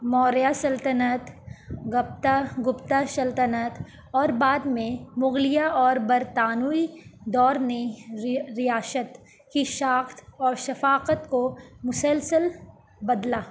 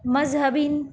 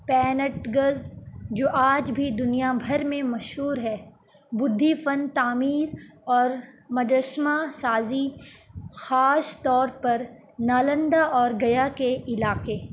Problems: constant background noise